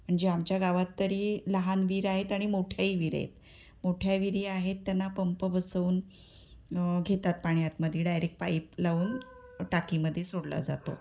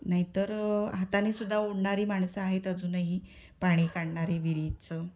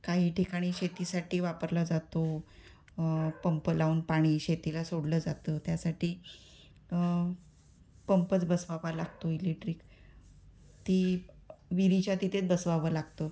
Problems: constant background noise